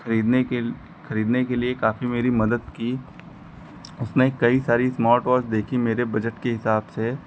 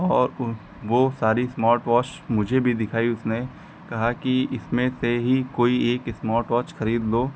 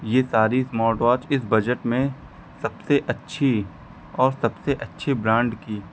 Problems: none marked